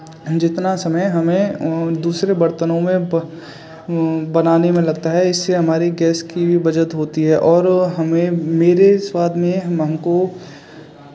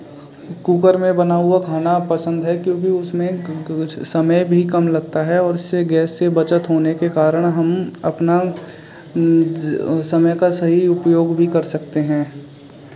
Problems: none marked